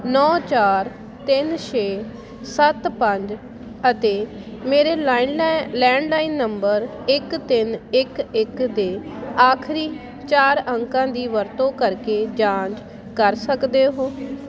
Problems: constant background noise